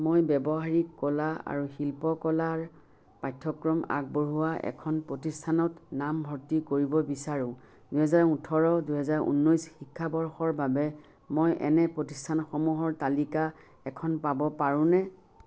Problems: background sounds at intervals